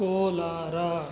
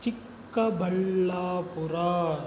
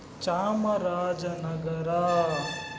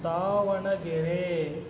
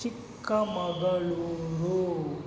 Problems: background sounds at intervals